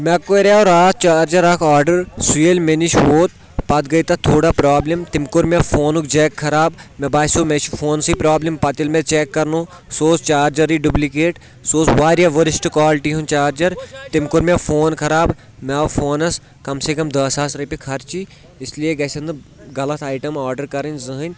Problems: constant background noise, background conversations at intervals